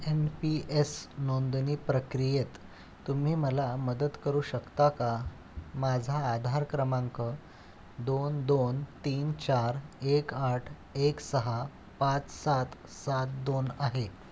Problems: none marked